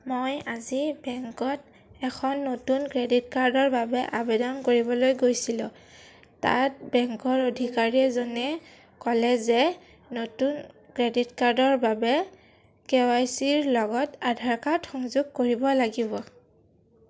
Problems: none marked